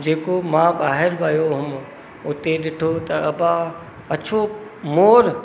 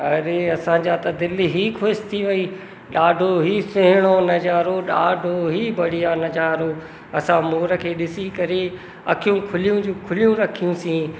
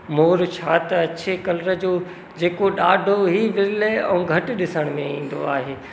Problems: constant background noise, echo